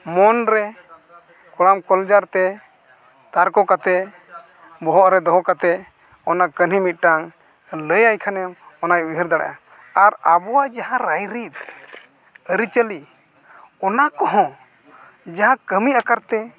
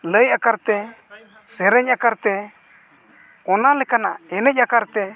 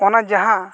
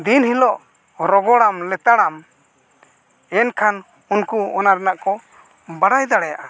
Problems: none marked